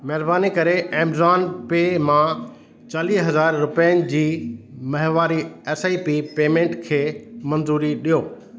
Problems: constant background noise, echo